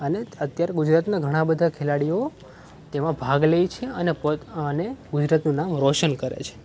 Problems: none marked